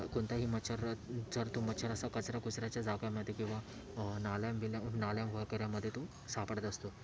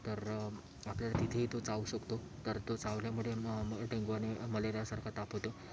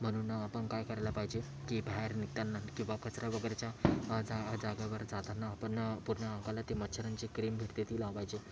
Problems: constant background noise